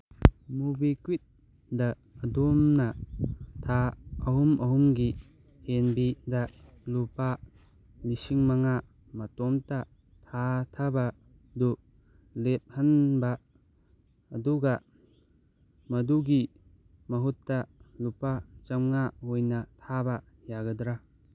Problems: none marked